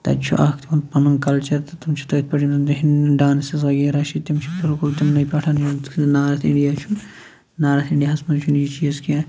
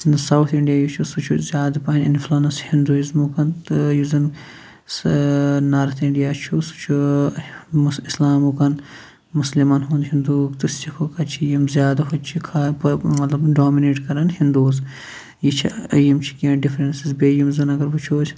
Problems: background sounds at intervals